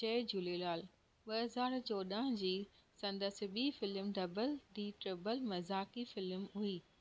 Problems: background sounds at intervals